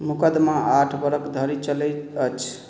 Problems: none marked